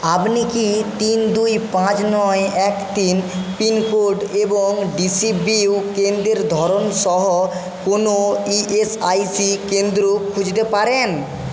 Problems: constant background noise